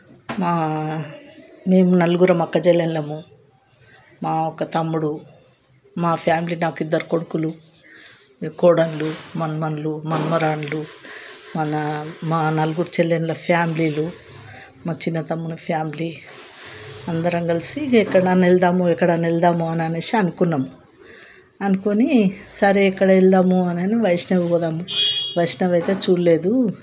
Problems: background sounds at intervals, continuous background conversations